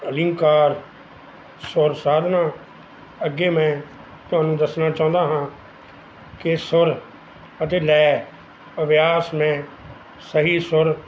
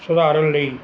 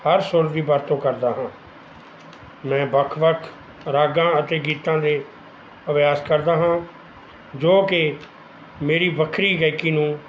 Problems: background sounds at intervals